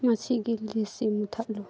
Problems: none marked